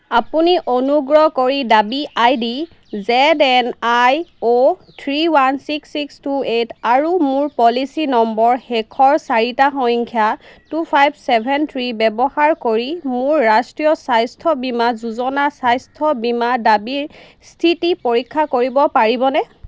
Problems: none marked